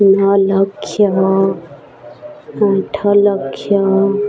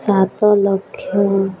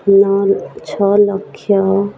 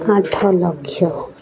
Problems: constant background noise, continuous background conversations